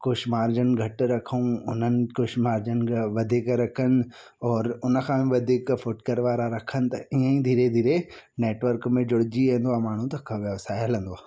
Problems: none marked